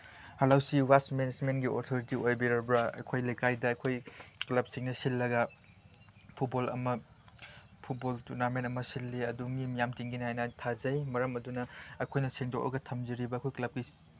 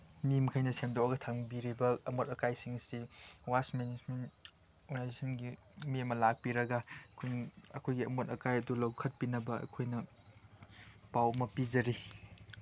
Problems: none marked